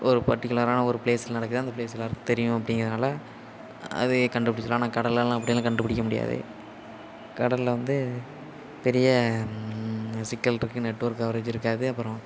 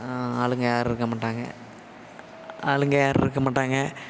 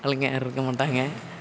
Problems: constant background noise